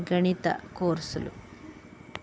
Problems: constant background noise